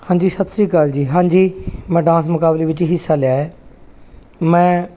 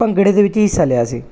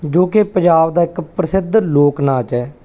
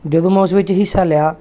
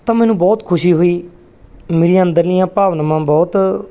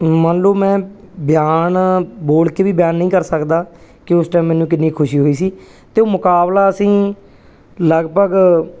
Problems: none marked